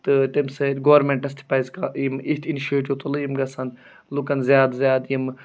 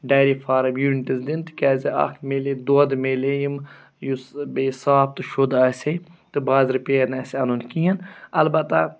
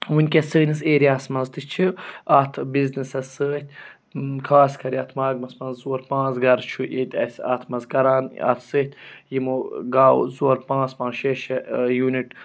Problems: none marked